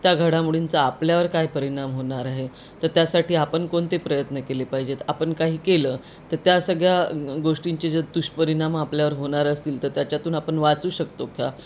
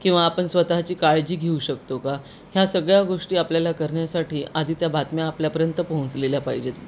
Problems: constant background noise